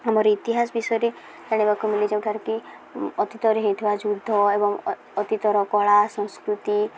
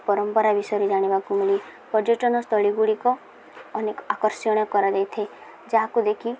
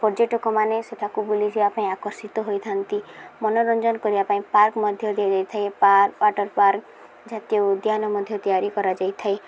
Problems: none marked